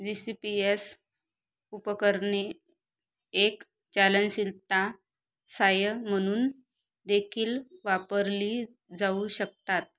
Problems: none marked